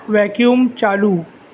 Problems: background conversations at intervals